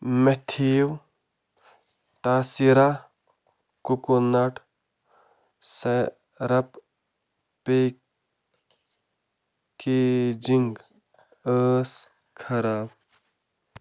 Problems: constant background noise